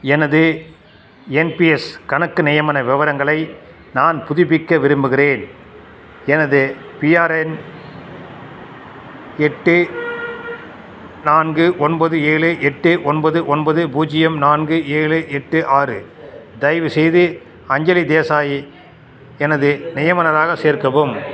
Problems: background sounds at intervals